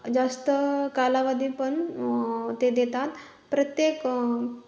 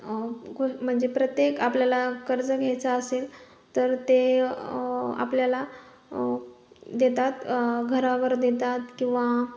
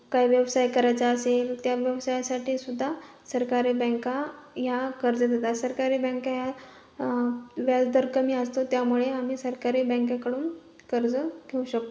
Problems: none marked